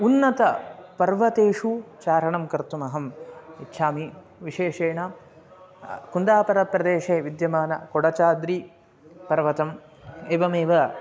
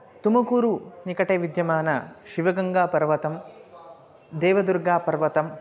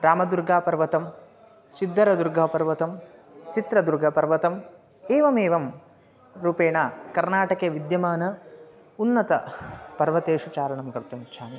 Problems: constant background noise